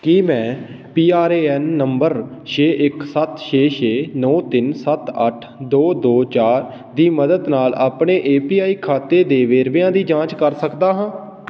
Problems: none marked